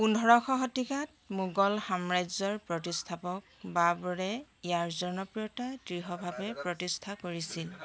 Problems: constant background noise, background conversations at intervals